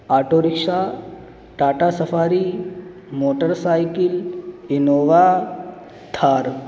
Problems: constant background noise